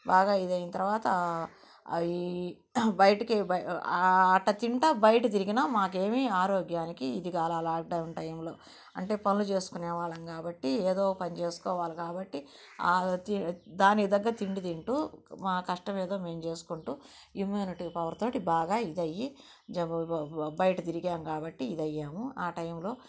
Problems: constant background noise, low volume